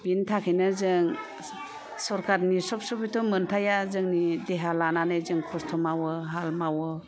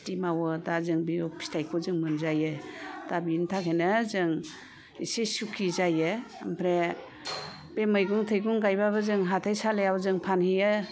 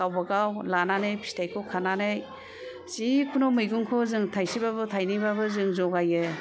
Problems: constant background noise